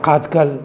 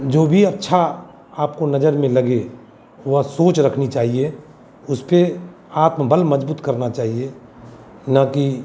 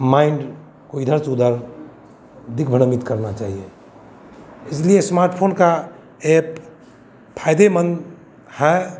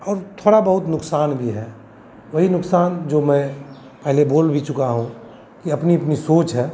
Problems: none marked